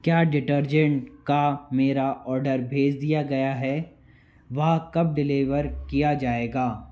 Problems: constant background noise